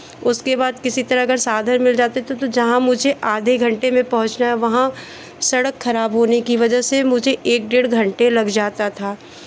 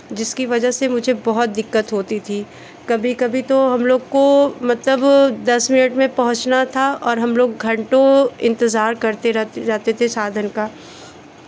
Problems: constant background noise, continuous background conversations